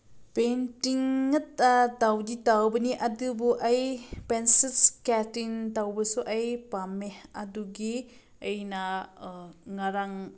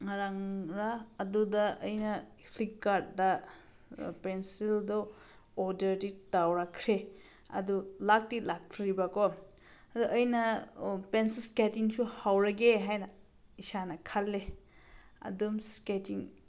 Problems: none marked